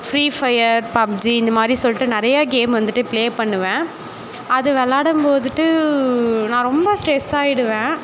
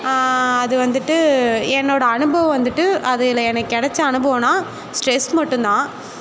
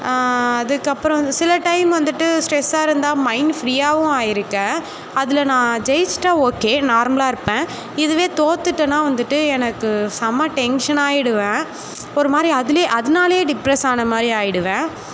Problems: constant background noise, background conversations at intervals